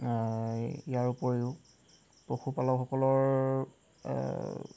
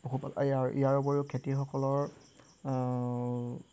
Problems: constant background noise